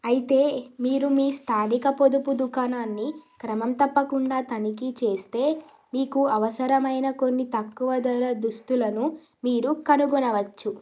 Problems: none marked